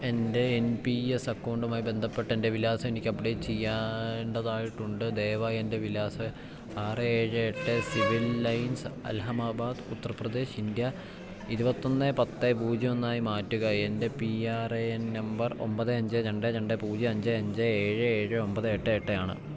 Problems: background sounds at intervals